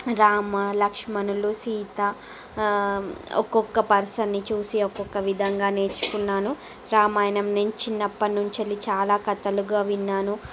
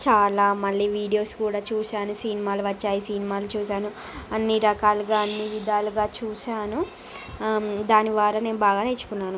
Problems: background sounds at intervals